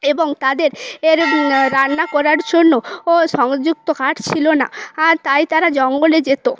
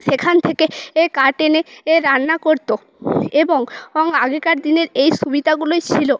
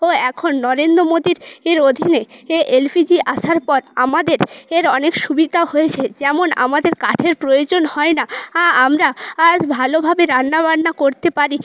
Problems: background sounds at intervals